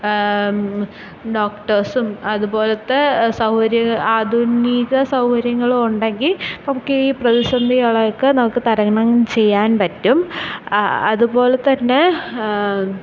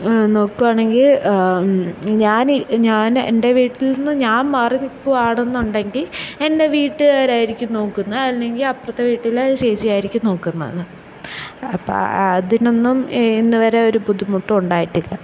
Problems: background sounds at intervals